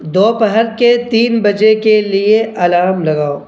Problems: constant background noise